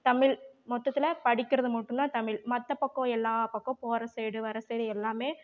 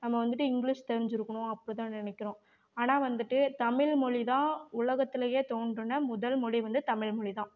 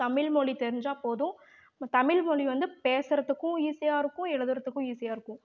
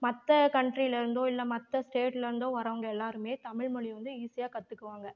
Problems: none marked